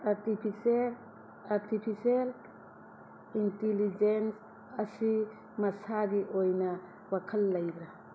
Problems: constant background noise